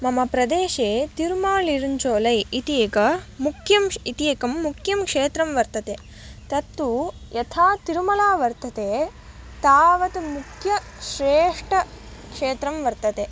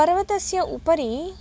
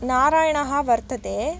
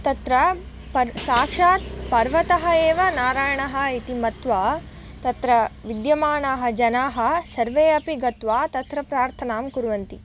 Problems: background sounds at intervals